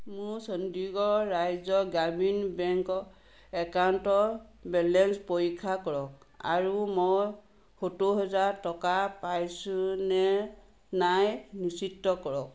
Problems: constant background noise